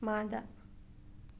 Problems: none marked